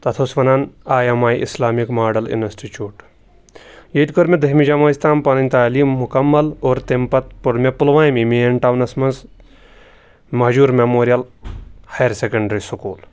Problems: background sounds at intervals